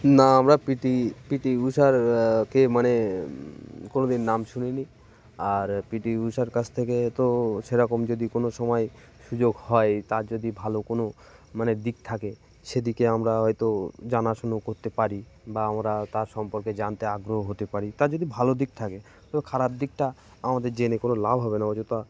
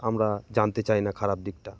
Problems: none marked